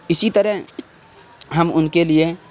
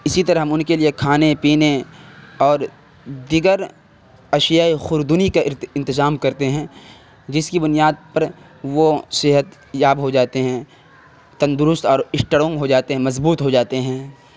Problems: constant background noise